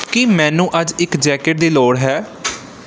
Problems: background sounds at intervals